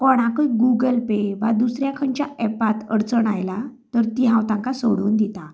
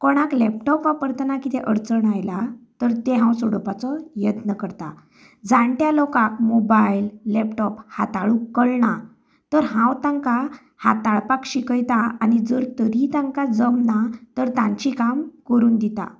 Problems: background conversations at intervals